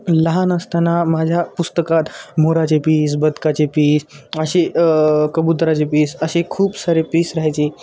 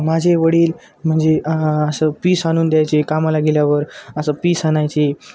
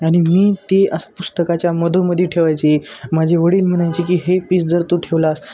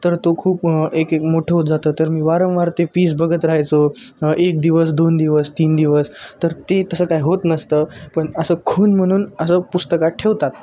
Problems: constant background noise